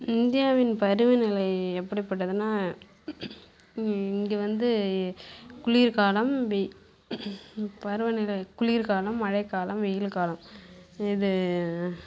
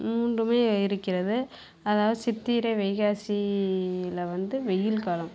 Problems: constant background noise